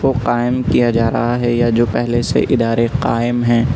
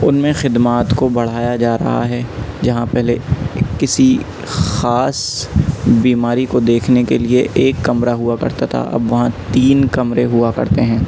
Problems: constant background noise